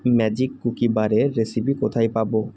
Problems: none marked